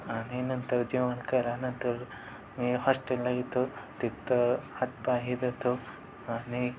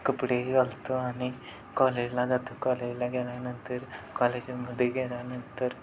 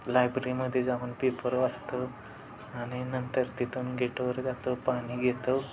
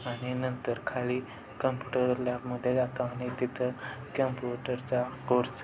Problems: constant background noise, background conversations at intervals, low volume